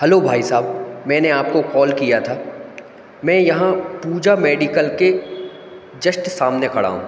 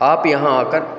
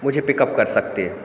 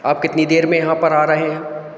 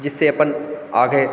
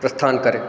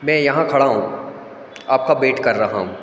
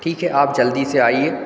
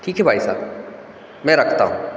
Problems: constant background noise